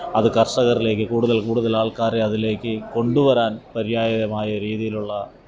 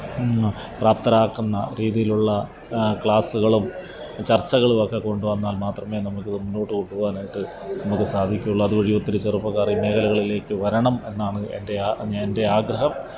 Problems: background sounds at intervals